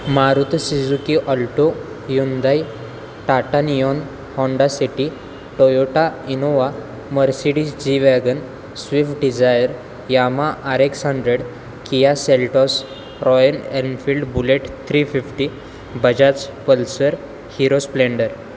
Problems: constant background noise